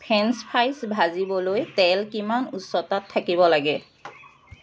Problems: constant background noise